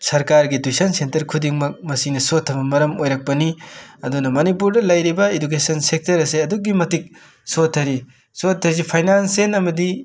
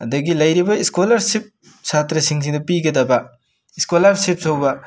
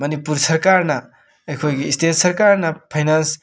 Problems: background sounds at intervals